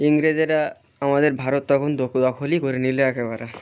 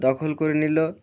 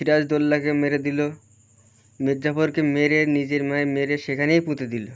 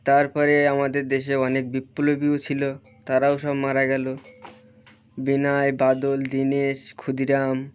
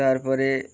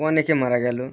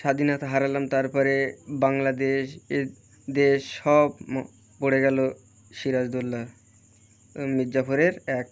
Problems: constant background noise